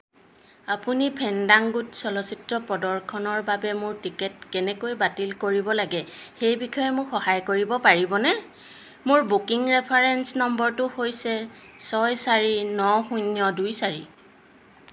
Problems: constant background noise